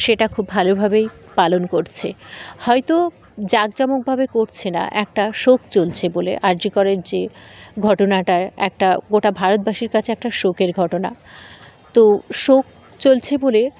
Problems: constant background noise, background conversations at intervals